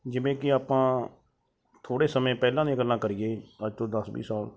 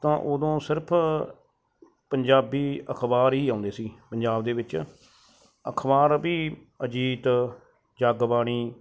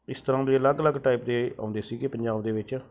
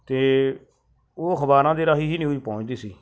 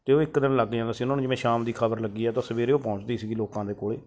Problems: background sounds at intervals